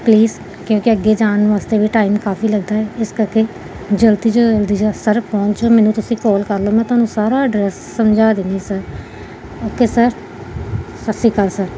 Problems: none marked